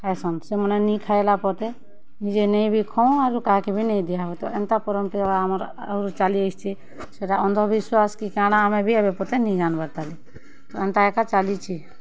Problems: constant background noise